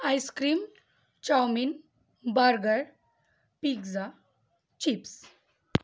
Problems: constant background noise